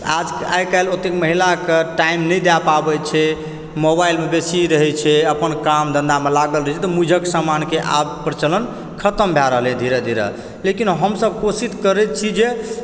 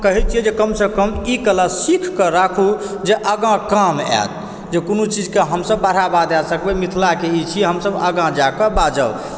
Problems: background sounds at intervals